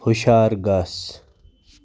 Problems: constant background noise